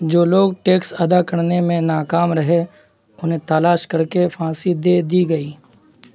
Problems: constant background noise